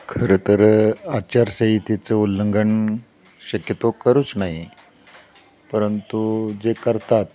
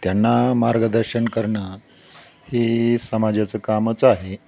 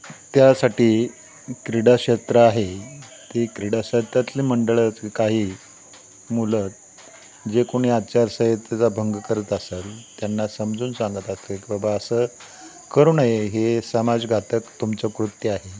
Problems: constant background noise, continuous background conversations